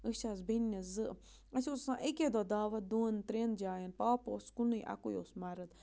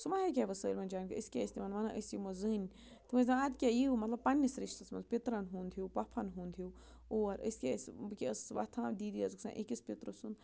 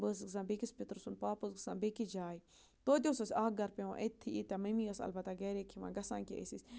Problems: low volume